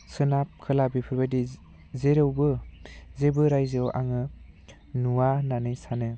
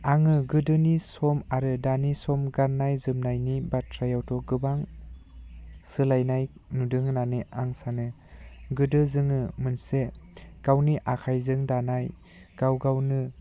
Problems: none marked